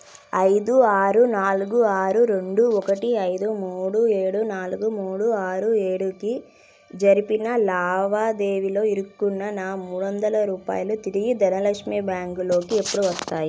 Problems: background sounds at intervals